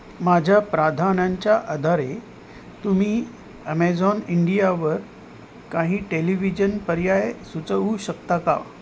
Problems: constant background noise